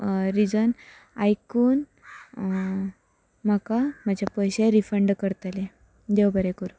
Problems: constant background noise